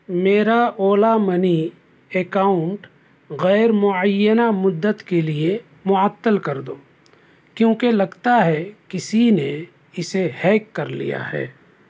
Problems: none marked